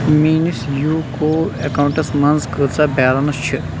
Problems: constant background noise